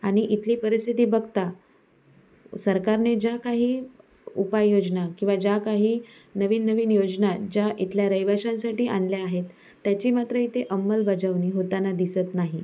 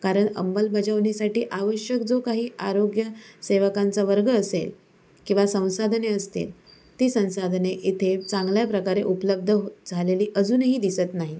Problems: none marked